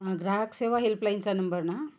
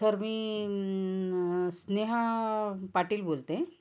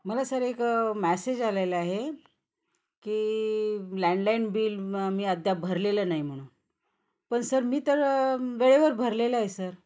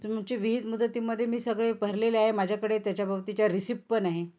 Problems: constant background noise